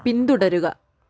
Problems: none marked